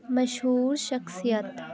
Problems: constant background noise, continuous background conversations